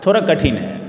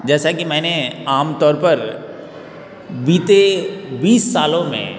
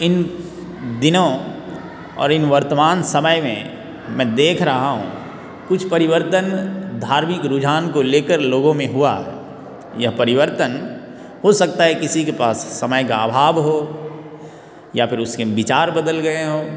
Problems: constant background noise